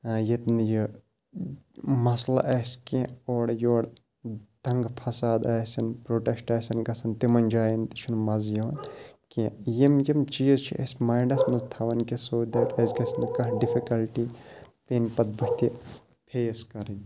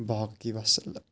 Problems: background sounds at intervals